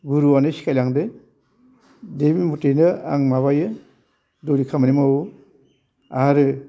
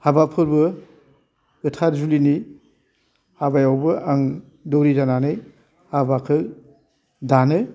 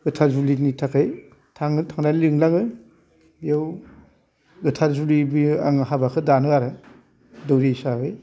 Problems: constant background noise